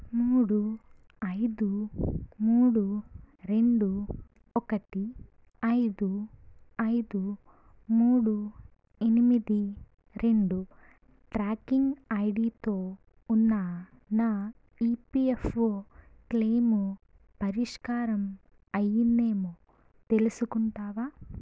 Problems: low volume